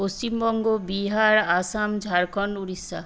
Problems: constant background noise